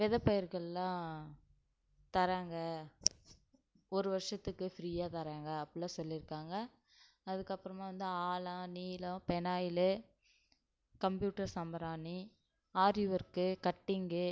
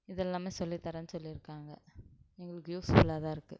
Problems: none marked